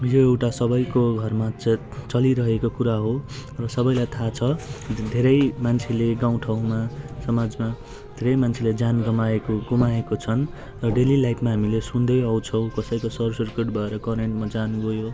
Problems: constant background noise